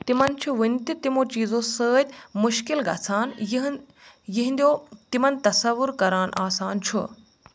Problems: none marked